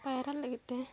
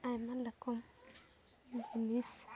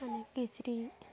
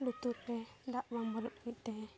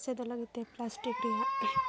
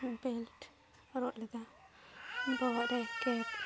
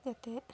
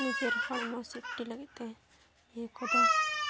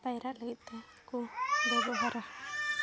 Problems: continuous background conversations